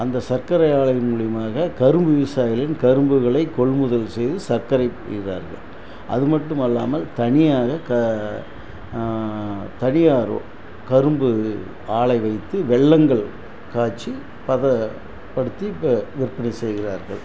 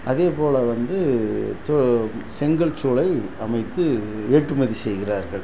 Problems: constant background noise